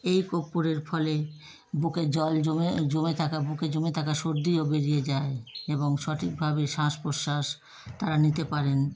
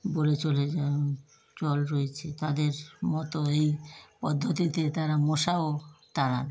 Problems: constant background noise